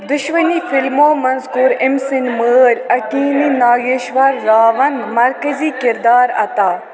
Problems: echo